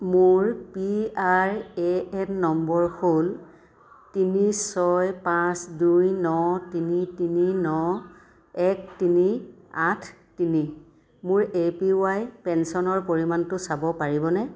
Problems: none marked